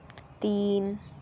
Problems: low volume